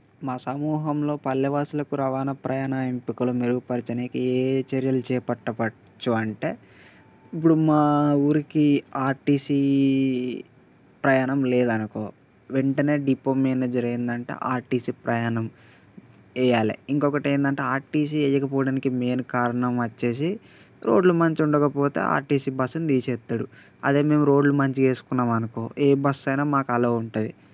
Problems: constant background noise